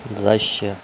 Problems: constant background noise